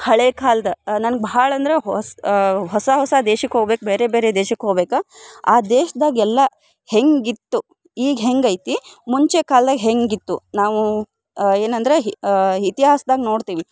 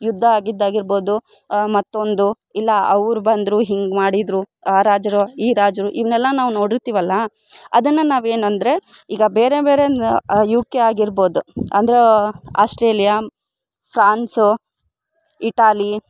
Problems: none marked